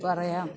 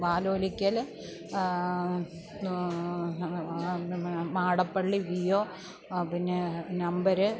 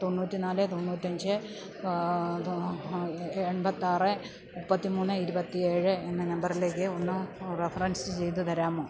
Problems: background sounds at intervals, low volume